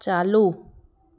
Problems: background sounds at intervals, background conversations at intervals